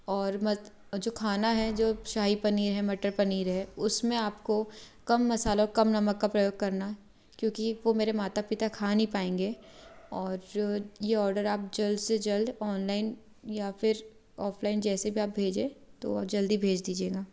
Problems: background sounds at intervals